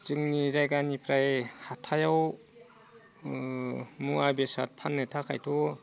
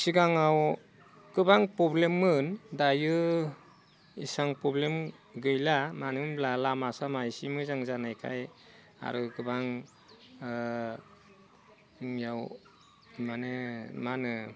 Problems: none marked